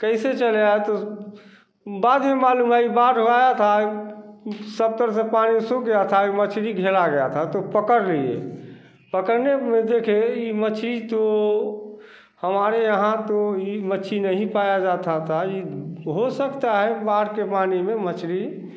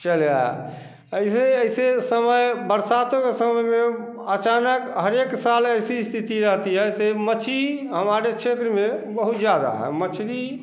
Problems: constant background noise